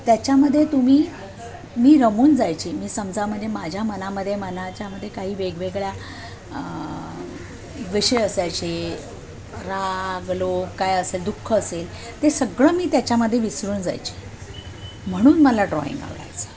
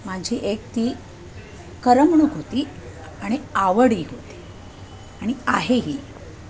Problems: constant background noise, background conversations at intervals